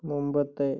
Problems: low volume